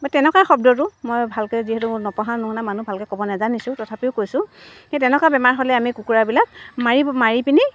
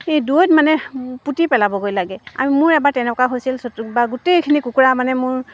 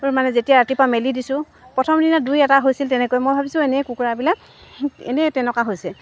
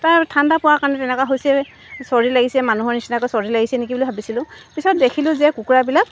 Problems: constant background noise, background conversations at intervals